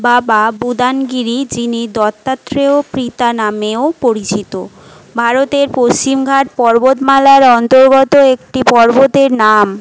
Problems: none marked